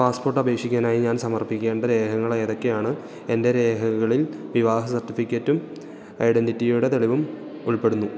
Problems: none marked